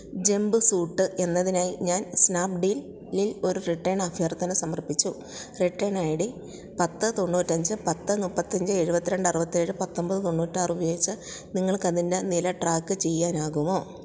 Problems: none marked